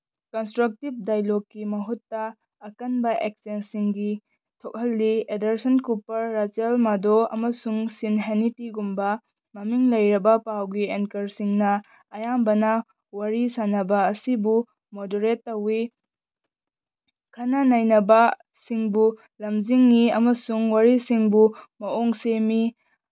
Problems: none marked